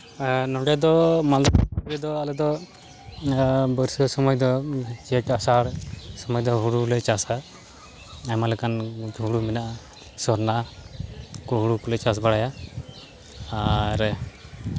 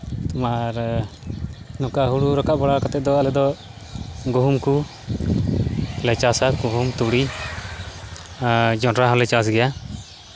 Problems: constant background noise